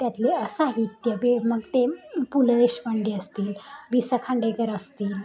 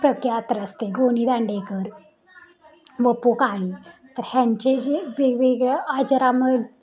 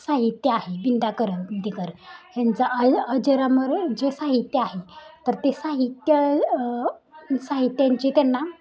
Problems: continuous background conversations